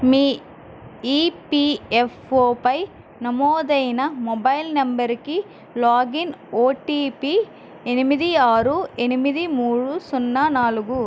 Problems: constant background noise